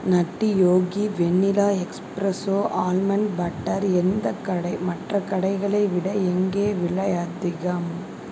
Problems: none marked